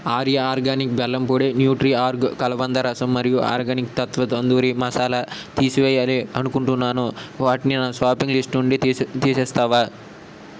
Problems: constant background noise